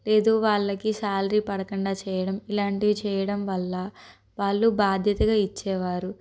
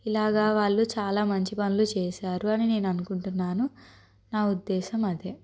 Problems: none marked